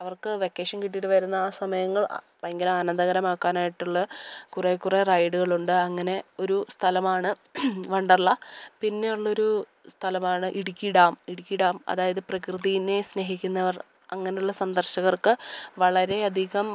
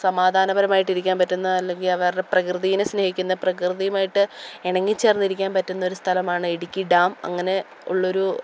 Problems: background sounds at intervals